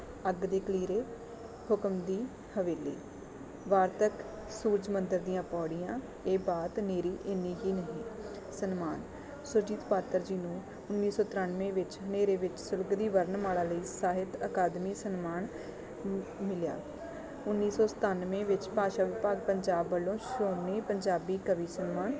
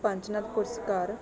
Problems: none marked